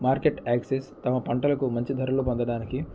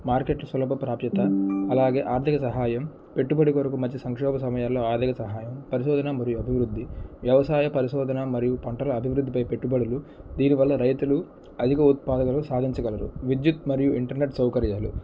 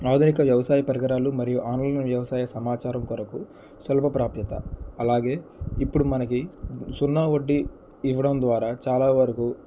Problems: background sounds at intervals, low volume